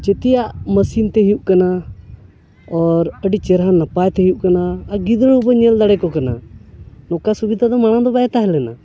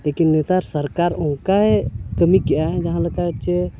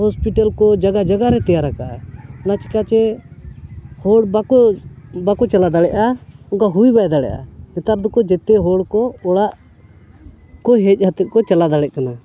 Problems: background conversations at intervals